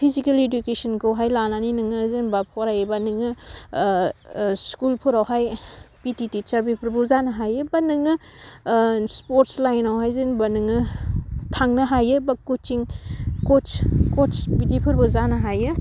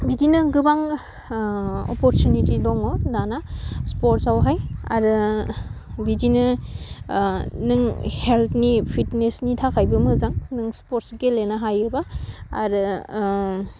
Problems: none marked